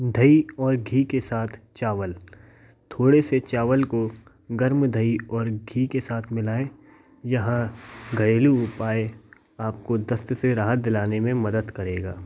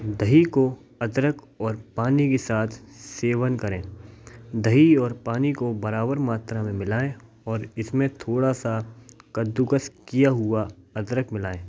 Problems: background sounds at intervals